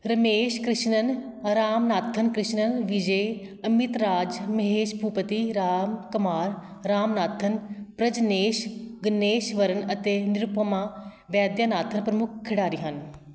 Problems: background sounds at intervals